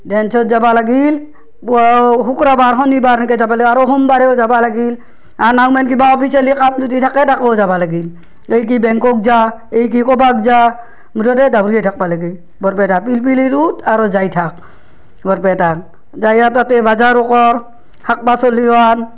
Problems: none marked